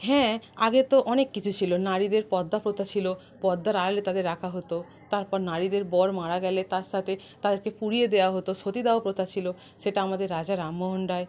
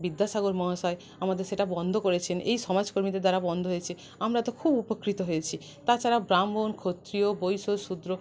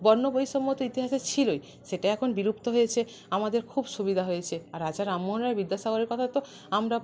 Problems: none marked